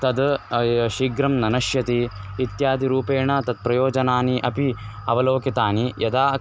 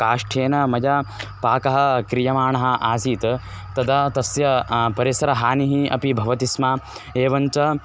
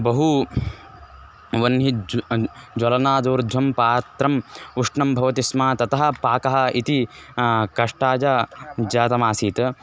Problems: constant background noise